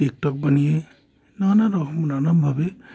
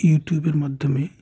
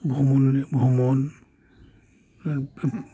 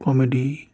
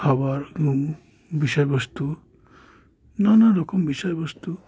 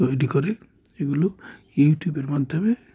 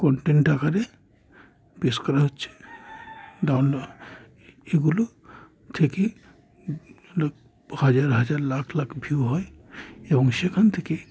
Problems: none marked